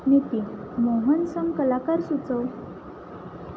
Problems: constant background noise